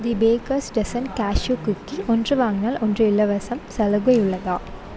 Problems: none marked